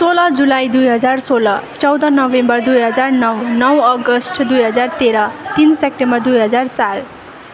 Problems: none marked